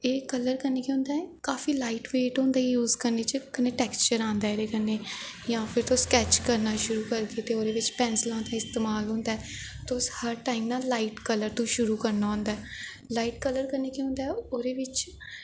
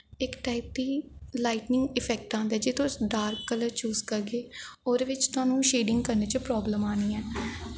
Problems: echo